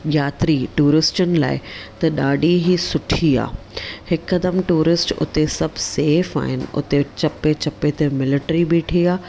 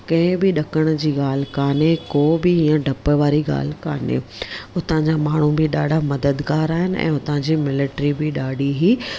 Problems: none marked